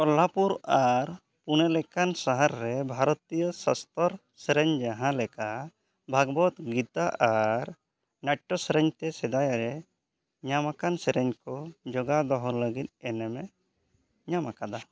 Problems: none marked